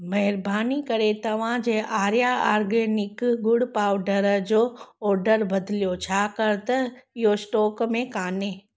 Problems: none marked